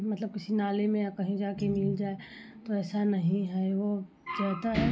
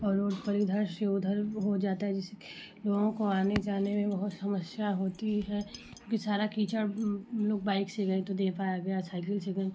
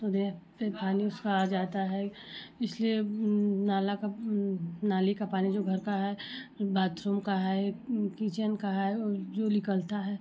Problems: none marked